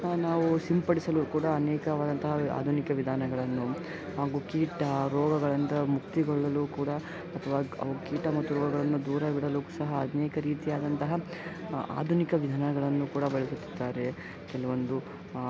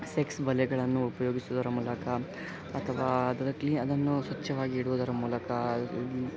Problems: background sounds at intervals